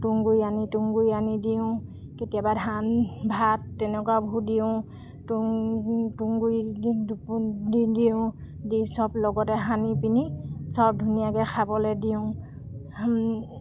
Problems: none marked